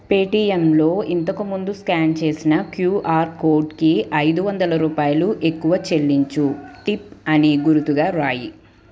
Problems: continuous background conversations